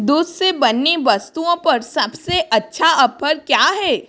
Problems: background sounds at intervals